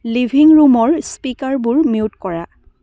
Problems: background sounds at intervals